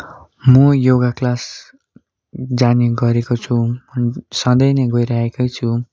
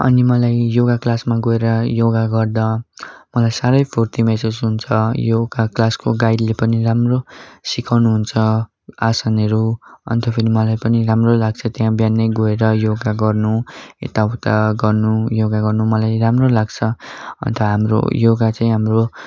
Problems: none marked